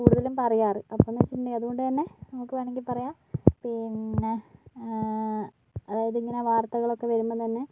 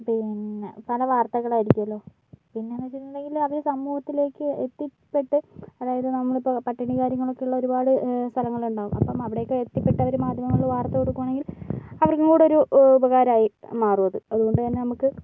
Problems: background sounds at intervals, low volume